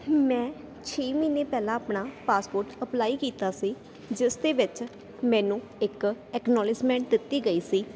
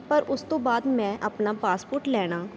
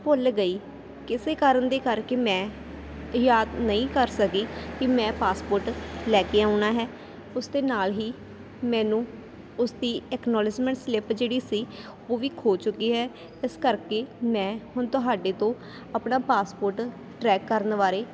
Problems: constant background noise